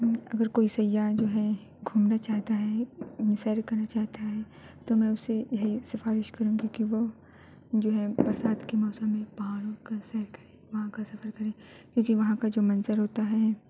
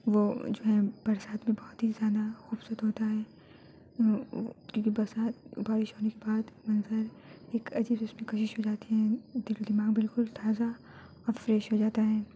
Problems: background sounds at intervals, low volume